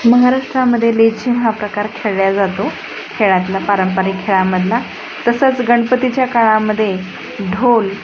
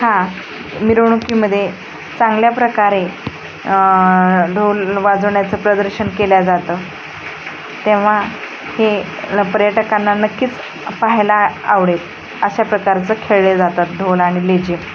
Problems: constant background noise, background conversations at intervals